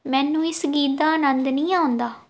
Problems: none marked